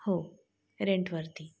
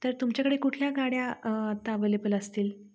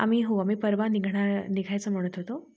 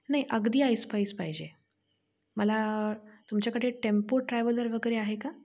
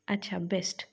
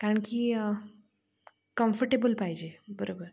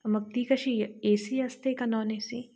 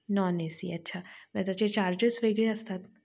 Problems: none marked